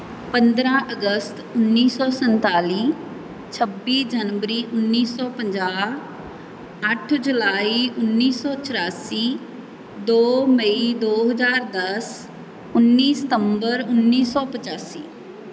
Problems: none marked